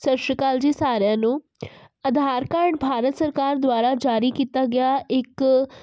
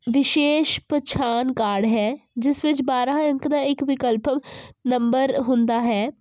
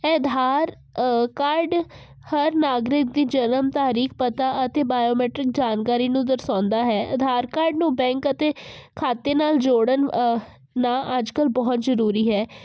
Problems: constant background noise